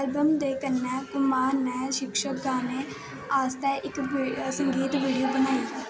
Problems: constant background noise